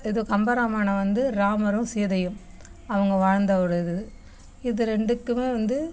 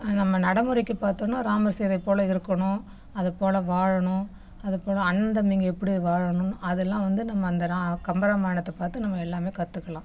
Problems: background sounds at intervals